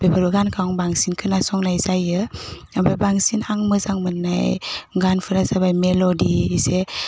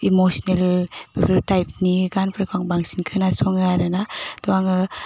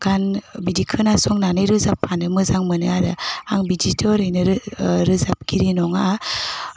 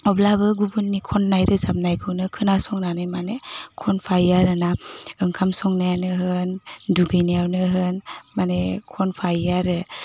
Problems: constant background noise